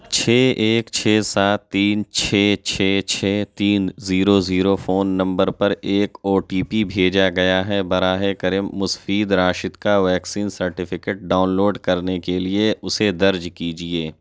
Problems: none marked